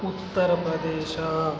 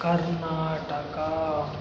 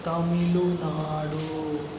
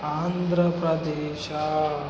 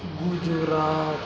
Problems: background sounds at intervals, background conversations at intervals